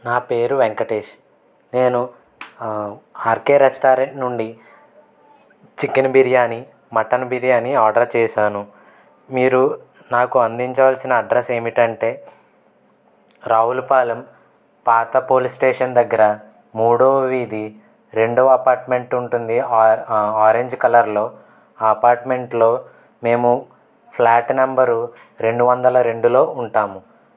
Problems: constant background noise, background conversations at intervals